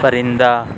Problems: constant background noise